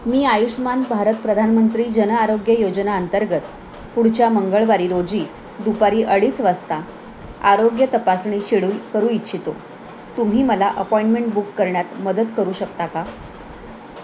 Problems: none marked